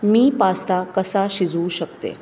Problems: constant background noise